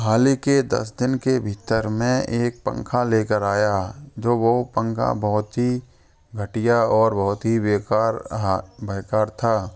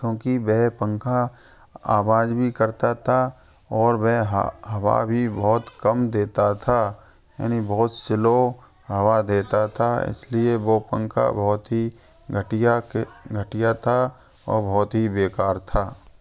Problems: constant background noise